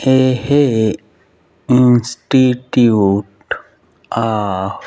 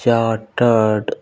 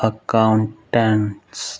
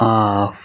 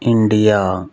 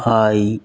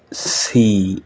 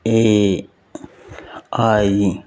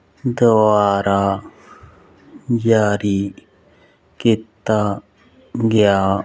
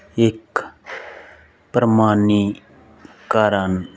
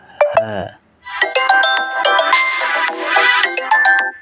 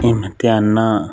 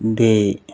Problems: constant background noise